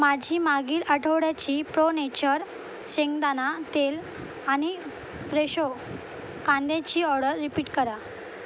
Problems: constant background noise